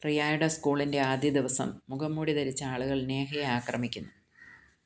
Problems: low volume